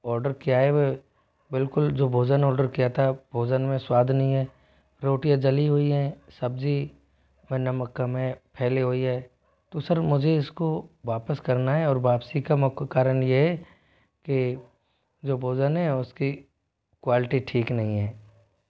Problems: background sounds at intervals